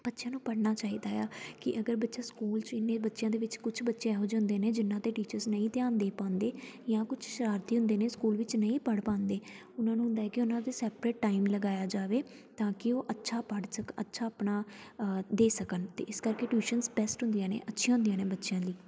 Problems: background sounds at intervals, continuous background conversations